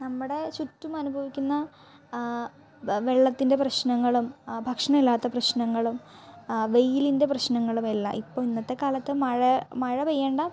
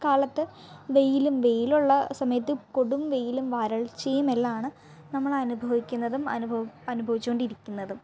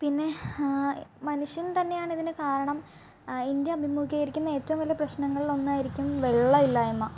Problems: background sounds at intervals, low volume